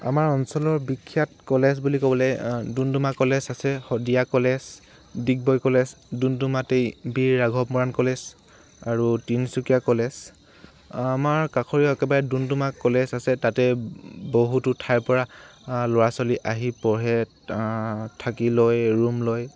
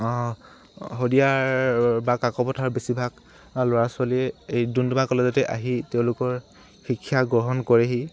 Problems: constant background noise